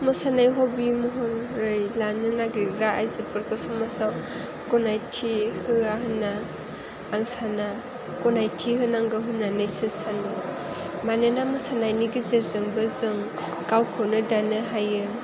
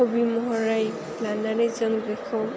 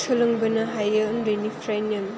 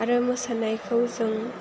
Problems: constant background noise